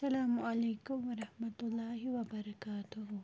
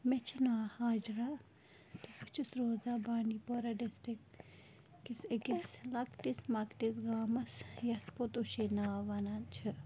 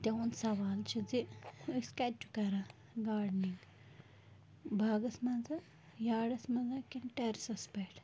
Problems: constant background noise, low volume